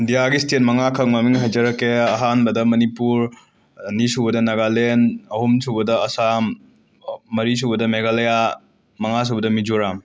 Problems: background sounds at intervals